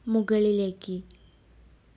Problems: low volume